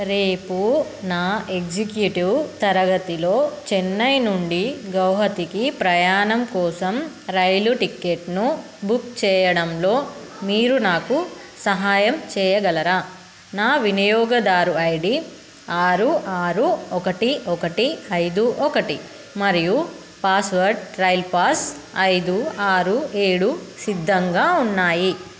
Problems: constant background noise